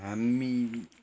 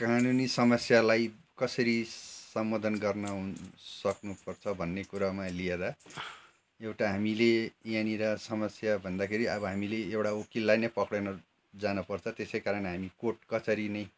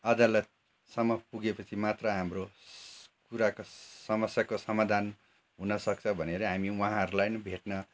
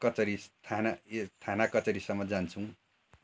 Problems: constant background noise